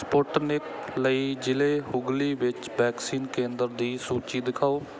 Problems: background sounds at intervals